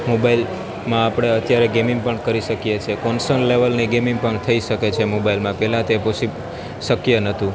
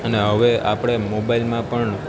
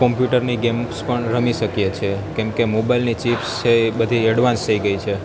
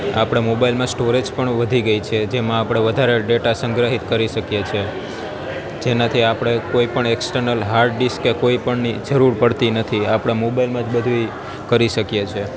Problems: constant background noise